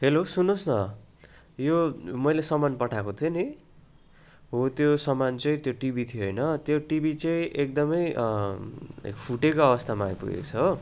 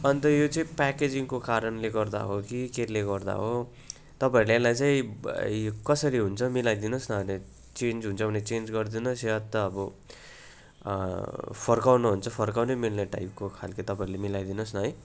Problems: constant background noise